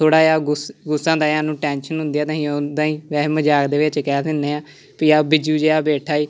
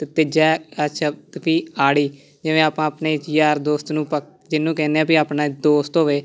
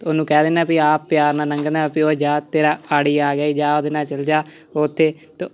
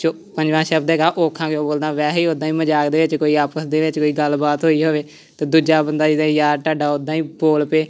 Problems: constant background noise, continuous background conversations